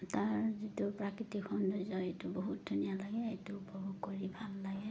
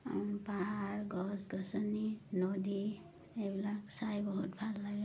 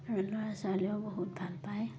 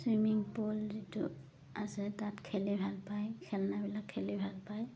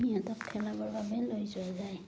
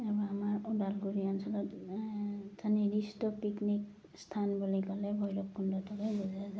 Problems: background sounds at intervals